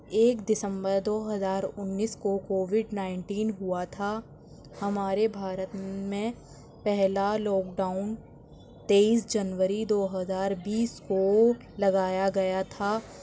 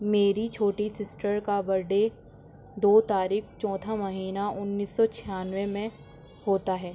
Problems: constant background noise, background conversations at intervals